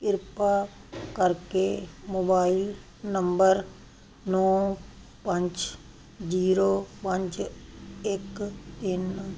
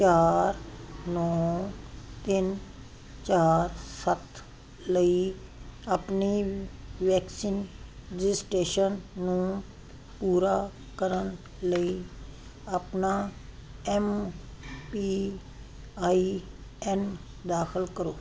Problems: none marked